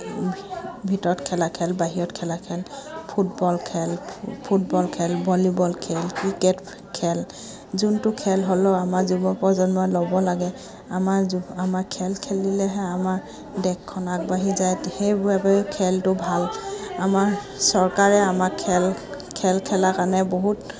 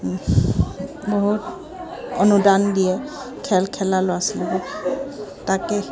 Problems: background sounds at intervals, background conversations at intervals